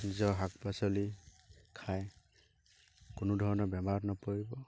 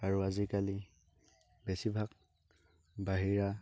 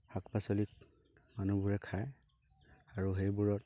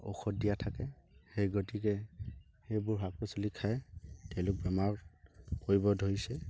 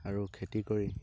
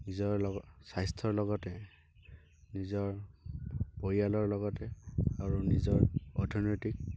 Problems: constant background noise